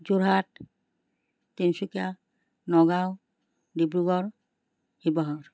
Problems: none marked